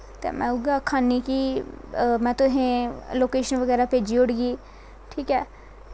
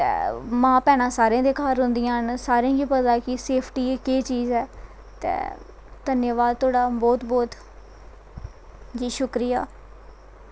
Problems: none marked